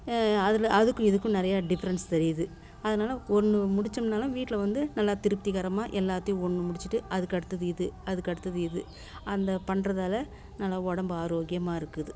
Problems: none marked